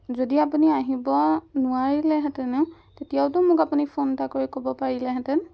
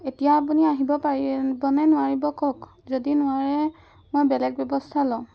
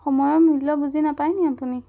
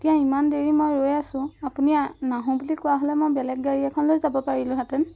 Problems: background sounds at intervals